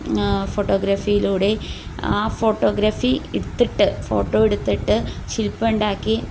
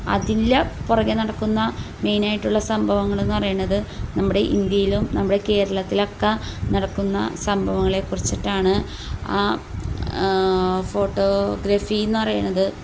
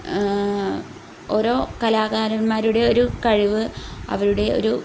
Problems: none marked